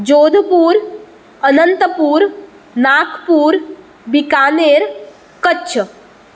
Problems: none marked